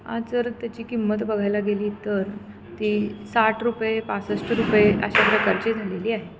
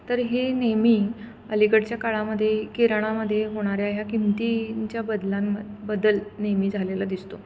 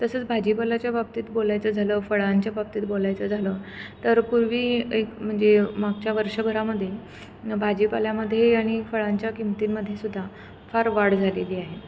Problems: none marked